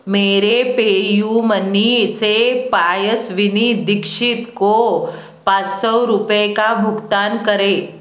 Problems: constant background noise